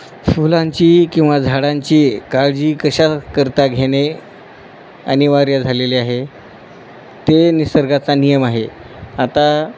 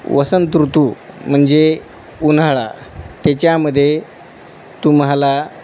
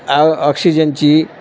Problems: none marked